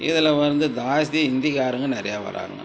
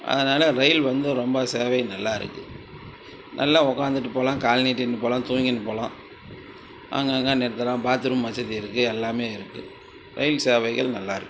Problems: constant background noise